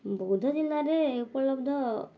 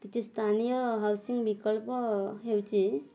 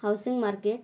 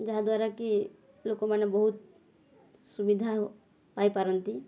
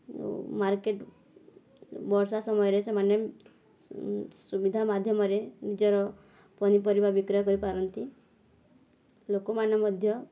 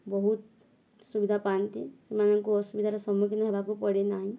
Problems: background sounds at intervals